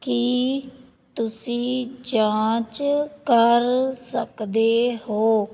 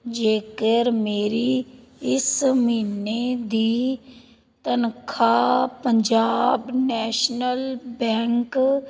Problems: background conversations at intervals